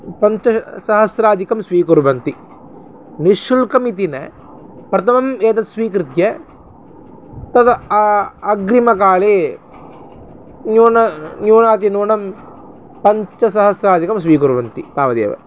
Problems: constant background noise